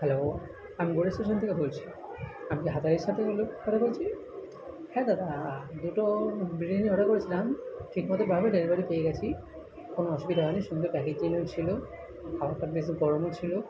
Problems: continuous background conversations